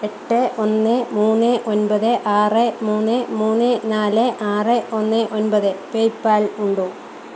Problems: constant background noise